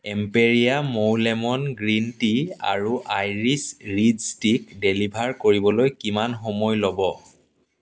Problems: background sounds at intervals